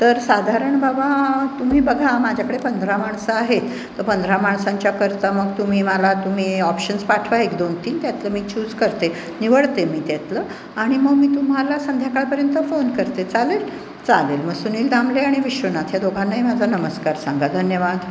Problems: constant background noise, background conversations at intervals, echo